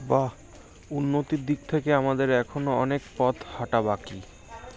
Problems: constant background noise, continuous background conversations